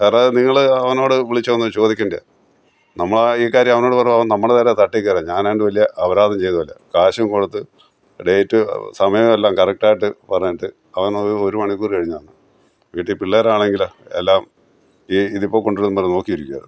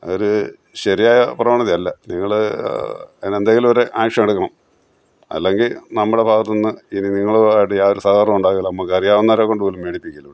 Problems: none marked